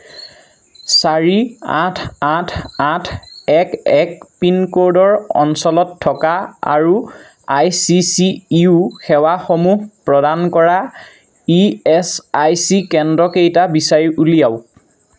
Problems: constant background noise